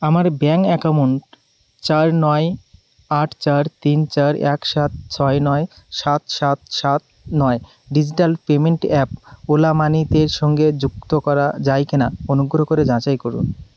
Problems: none marked